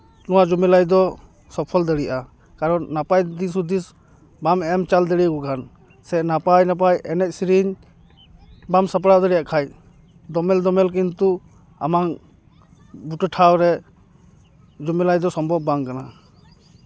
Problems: none marked